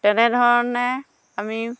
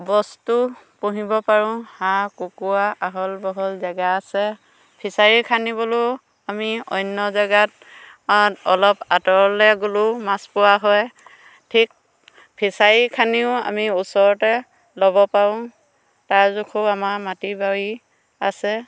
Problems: none marked